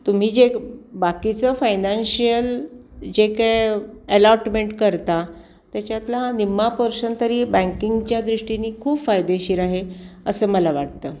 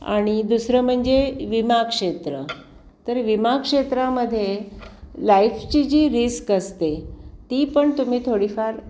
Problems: constant background noise, background conversations at intervals